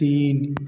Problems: background sounds at intervals